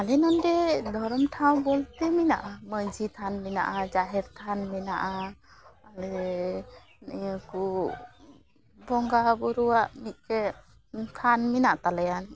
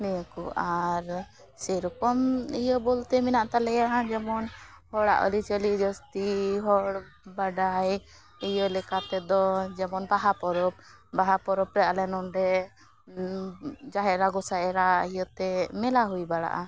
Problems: background sounds at intervals